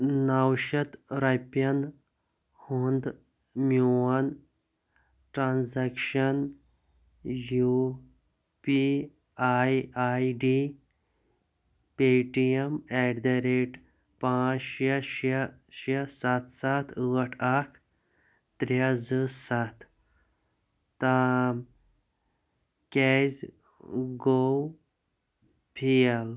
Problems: low volume